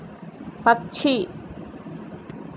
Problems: constant background noise